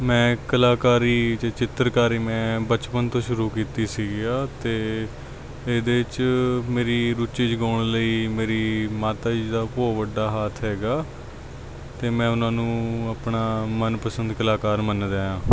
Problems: background sounds at intervals